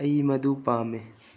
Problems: low volume